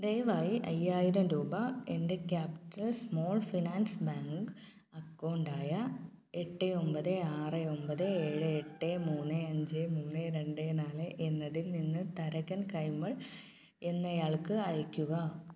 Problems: low volume